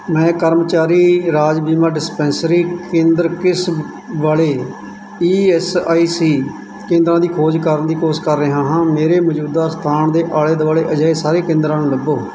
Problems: none marked